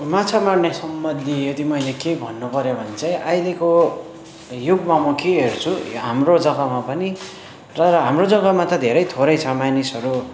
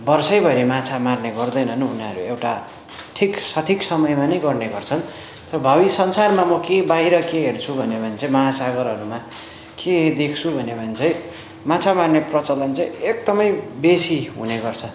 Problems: constant background noise, background conversations at intervals